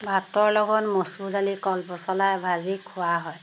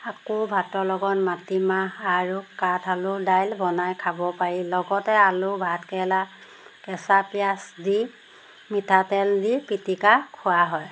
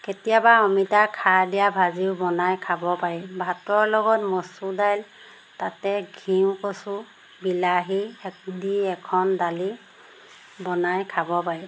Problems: background sounds at intervals